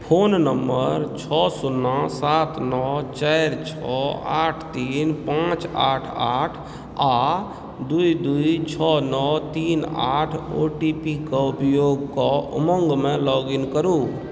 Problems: background sounds at intervals